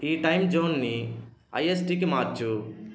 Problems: constant background noise